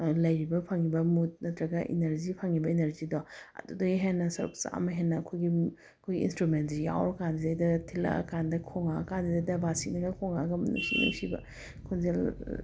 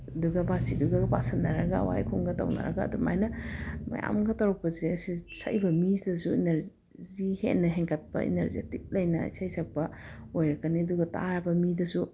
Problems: background sounds at intervals